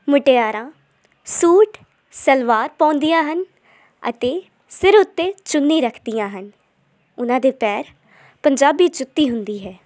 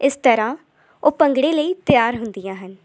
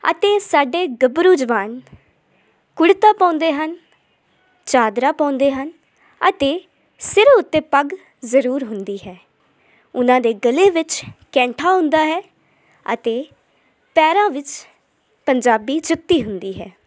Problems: none marked